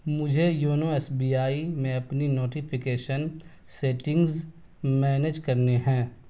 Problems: none marked